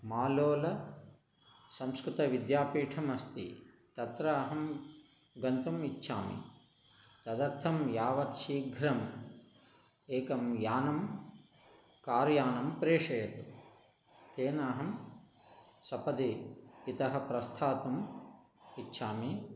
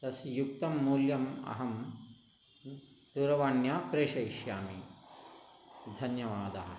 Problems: none marked